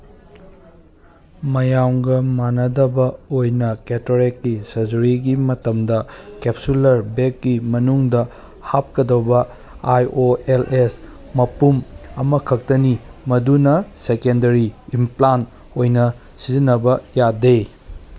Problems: none marked